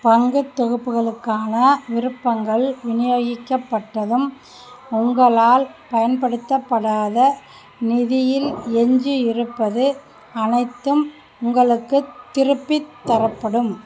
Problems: constant background noise